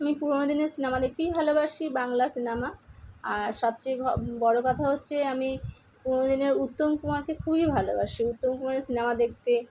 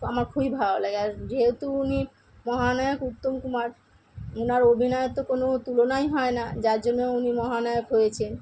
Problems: none marked